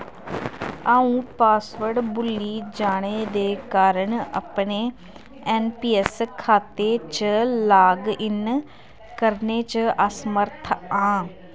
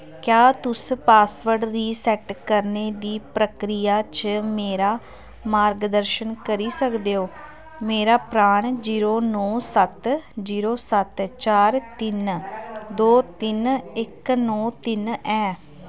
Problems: constant background noise